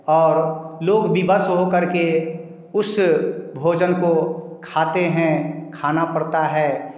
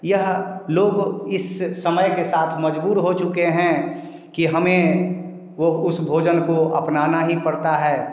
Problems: none marked